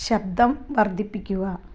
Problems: low volume